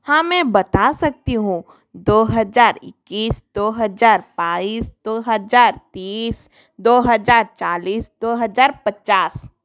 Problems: background sounds at intervals